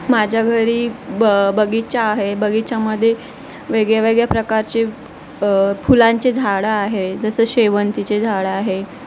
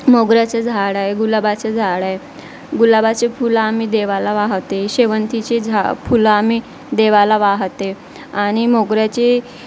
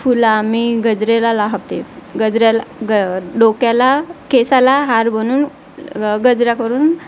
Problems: constant background noise, background conversations at intervals